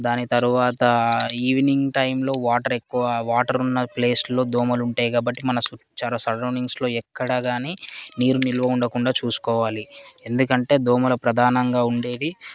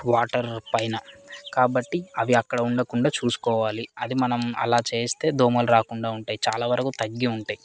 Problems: constant background noise, background conversations at intervals